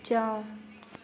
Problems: low volume